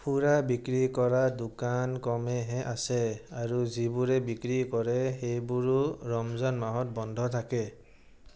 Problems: none marked